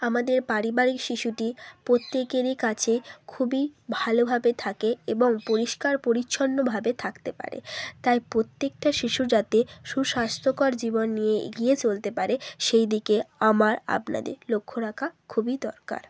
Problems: constant background noise